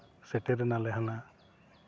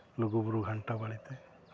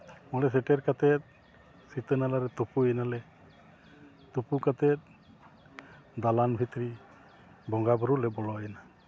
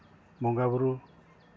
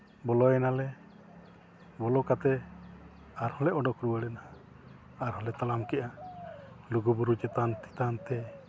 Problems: none marked